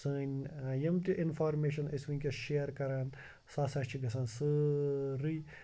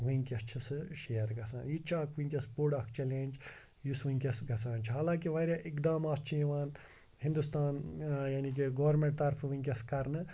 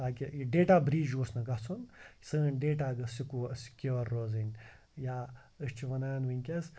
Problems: background sounds at intervals, background conversations at intervals